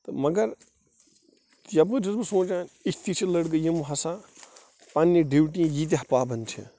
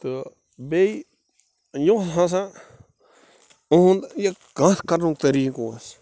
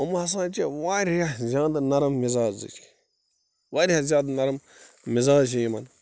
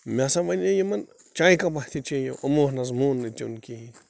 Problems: background sounds at intervals